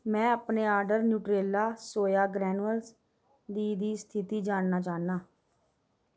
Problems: none marked